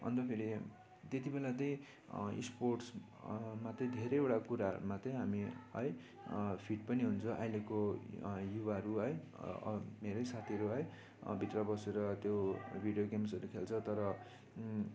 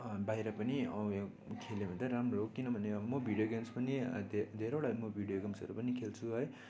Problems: constant background noise